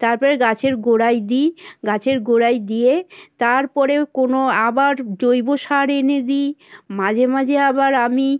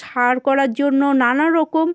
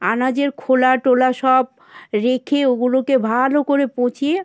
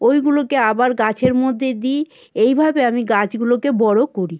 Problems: constant background noise